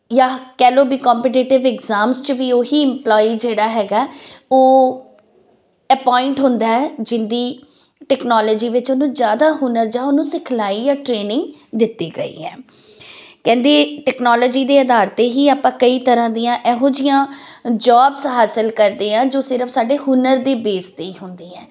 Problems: background sounds at intervals